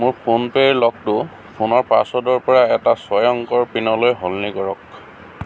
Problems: constant background noise